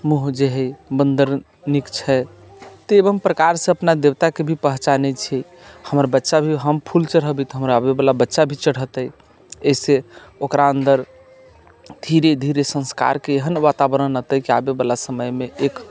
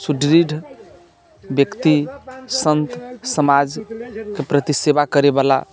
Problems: constant background noise